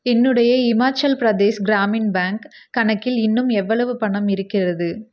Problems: none marked